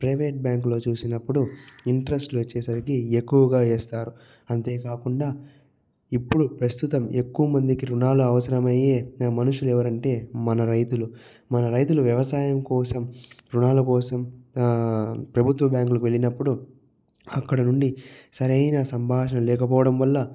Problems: low volume